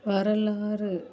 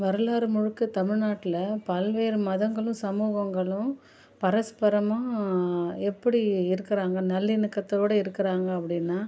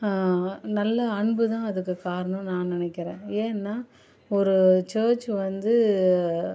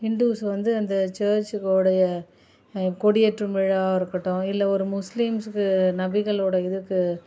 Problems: none marked